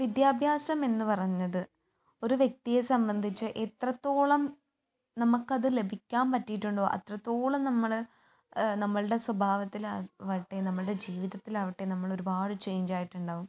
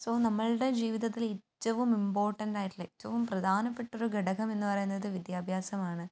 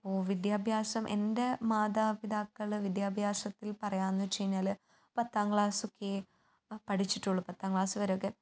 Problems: none marked